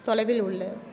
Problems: continuous background conversations